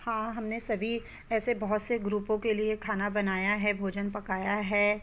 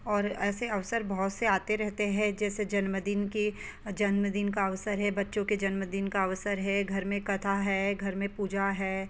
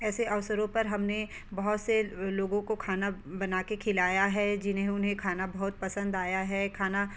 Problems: background sounds at intervals